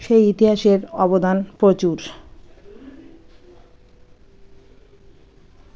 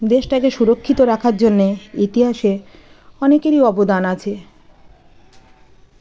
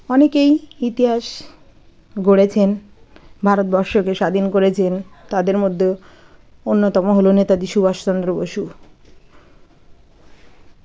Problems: none marked